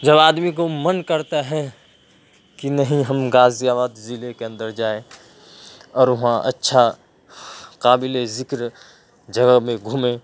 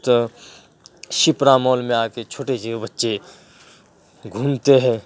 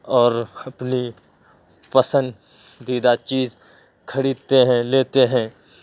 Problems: background sounds at intervals